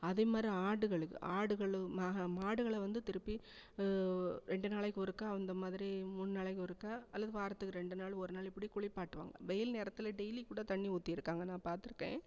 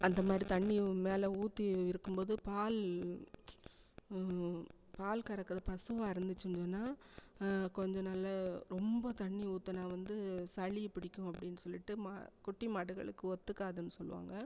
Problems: background sounds at intervals